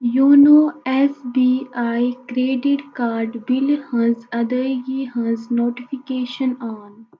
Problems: constant background noise